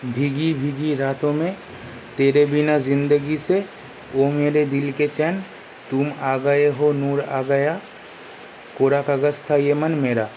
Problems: constant background noise